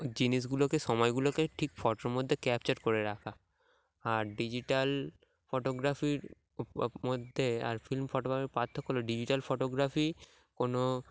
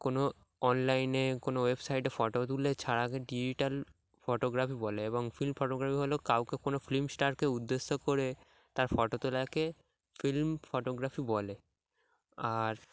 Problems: background sounds at intervals